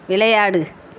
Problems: constant background noise